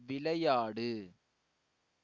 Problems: low volume